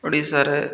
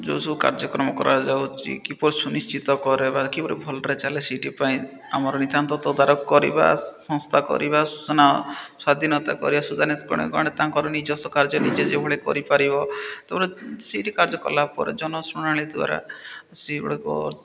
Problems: none marked